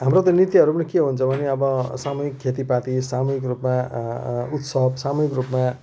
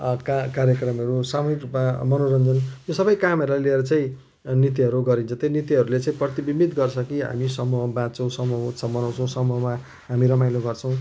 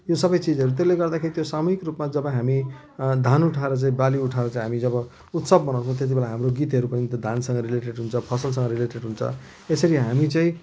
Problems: constant background noise